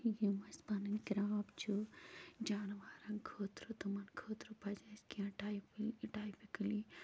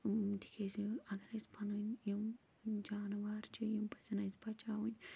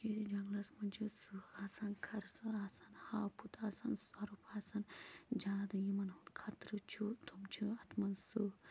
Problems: constant background noise, low volume